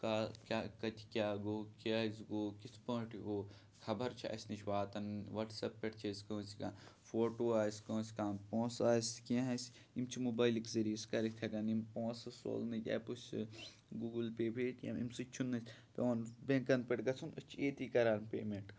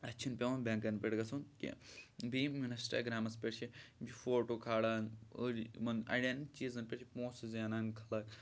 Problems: none marked